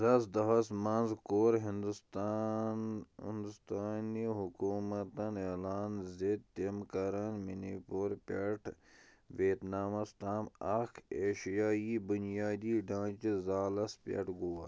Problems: low volume